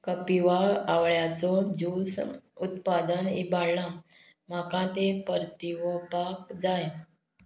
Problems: none marked